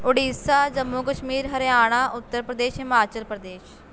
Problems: constant background noise